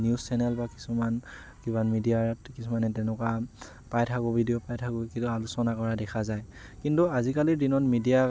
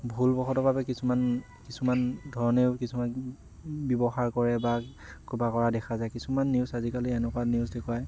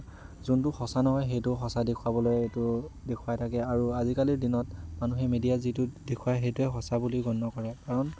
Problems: constant background noise